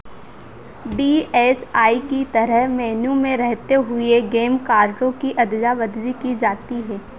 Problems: constant background noise